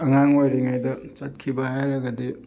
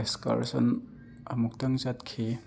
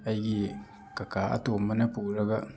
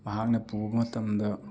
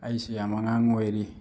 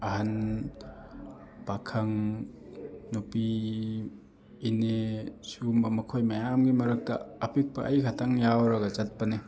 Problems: constant background noise